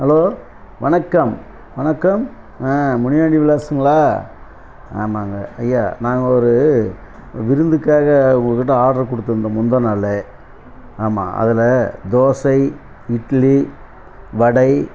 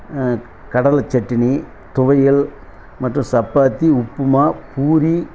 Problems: constant background noise